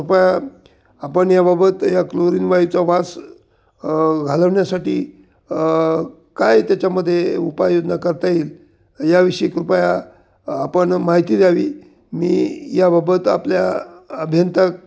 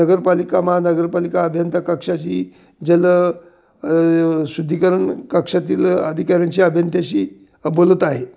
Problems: none marked